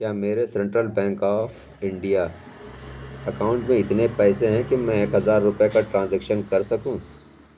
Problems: background sounds at intervals